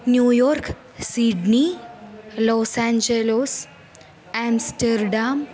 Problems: none marked